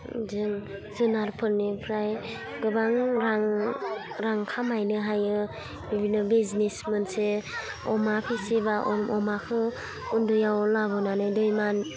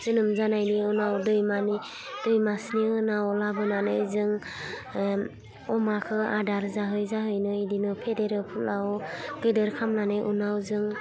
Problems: low volume